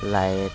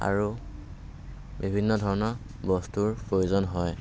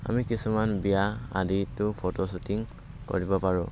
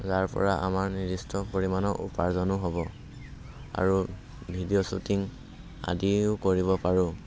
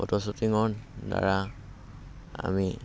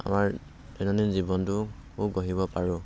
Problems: constant background noise